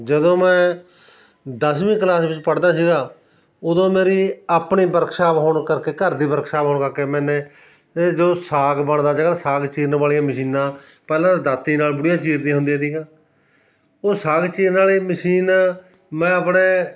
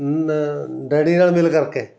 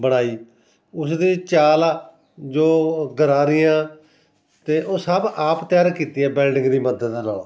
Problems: constant background noise